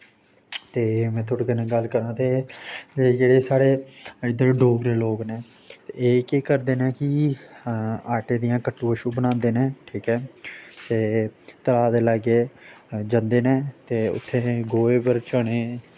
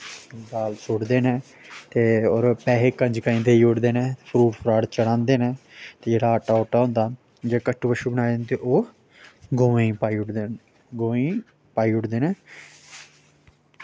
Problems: constant background noise